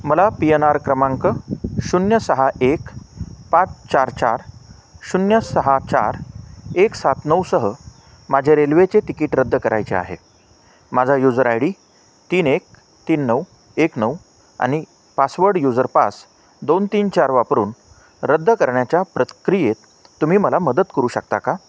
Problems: none marked